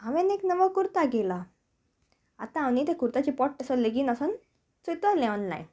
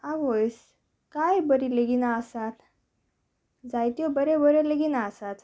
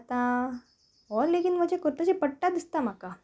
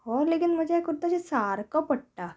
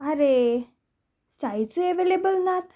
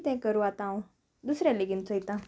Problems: background sounds at intervals